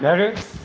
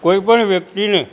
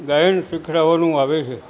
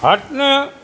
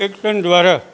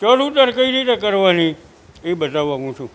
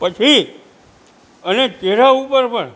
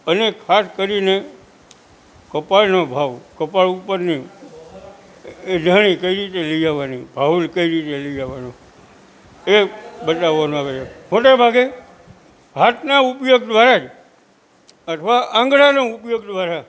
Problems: constant background noise